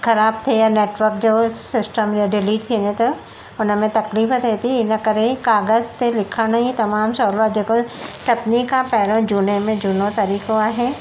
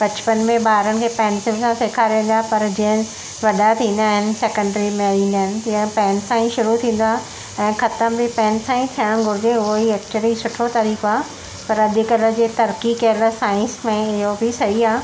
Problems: constant background noise